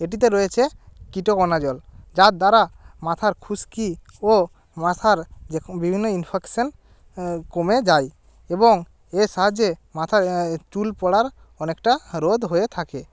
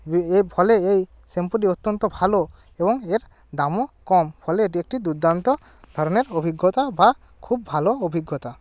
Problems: none marked